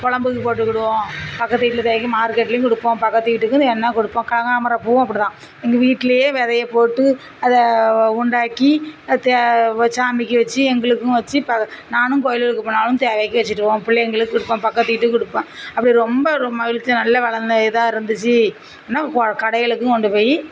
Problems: constant background noise, low volume